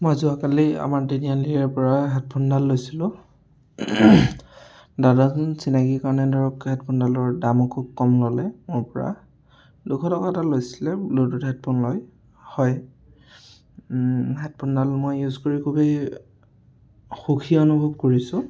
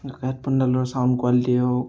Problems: background conversations at intervals